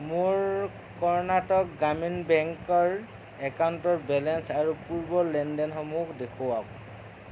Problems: constant background noise